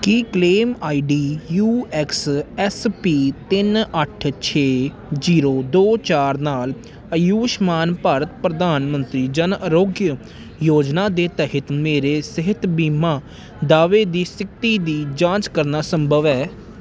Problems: none marked